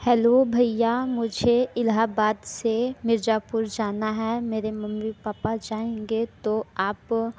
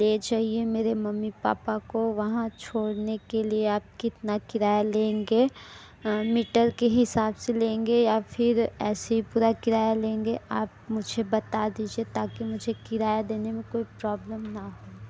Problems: background sounds at intervals